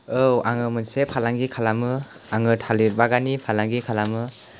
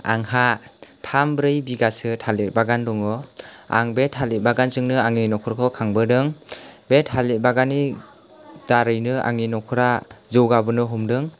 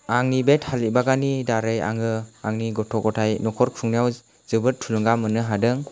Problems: background sounds at intervals